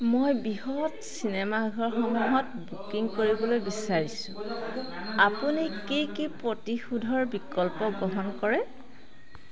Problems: constant background noise, background conversations at intervals